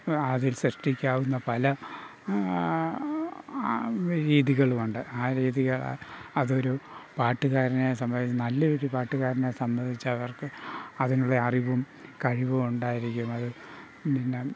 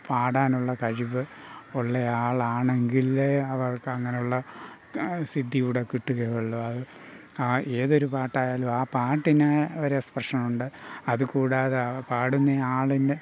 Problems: none marked